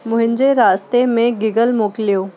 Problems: constant background noise